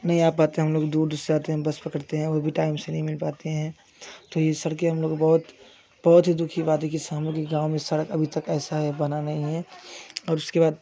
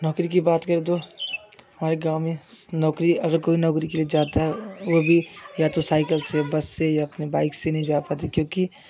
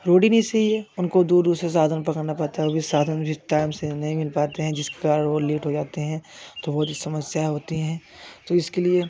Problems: constant background noise